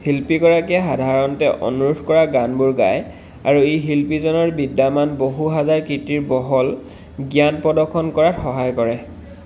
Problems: constant background noise